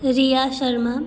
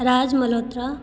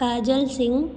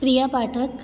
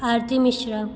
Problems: none marked